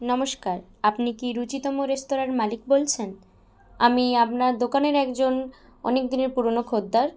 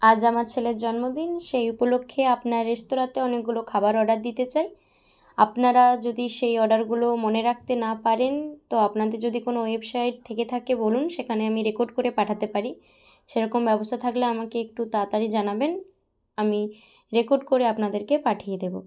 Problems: none marked